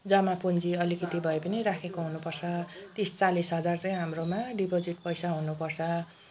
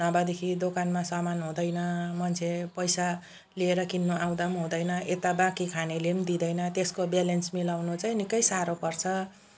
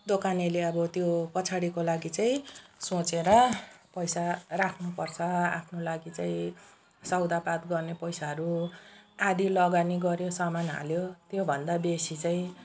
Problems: background sounds at intervals